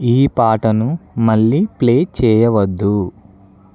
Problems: background conversations at intervals